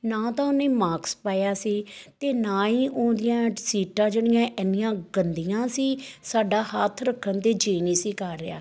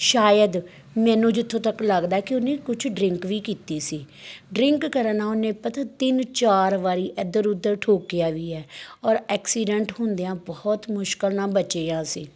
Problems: background sounds at intervals